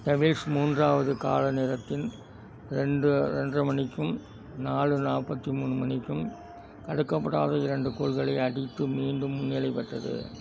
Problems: background sounds at intervals